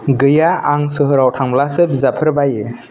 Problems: none marked